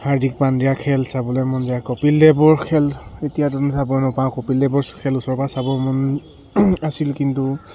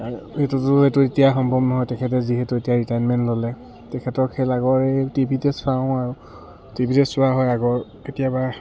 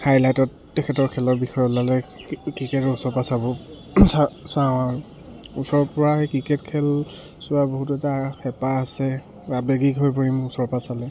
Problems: background sounds at intervals